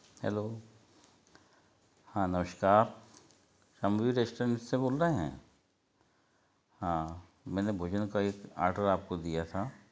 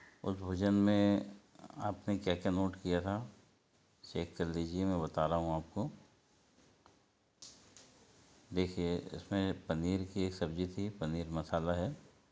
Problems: background sounds at intervals